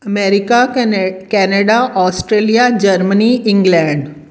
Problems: none marked